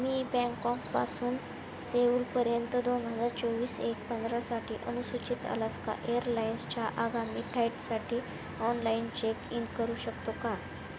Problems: constant background noise